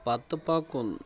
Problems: background conversations at intervals